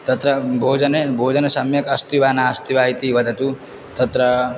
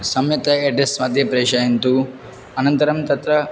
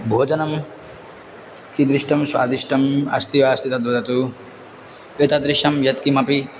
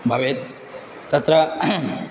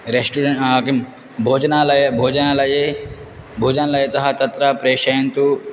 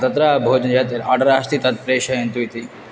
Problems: none marked